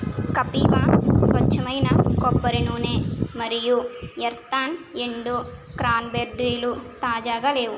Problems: constant background noise